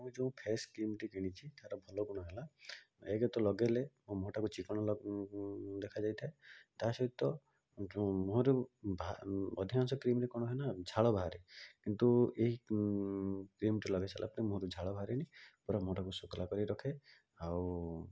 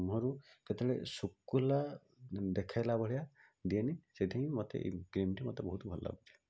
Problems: low volume